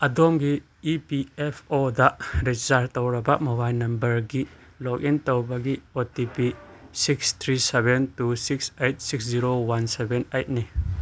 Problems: none marked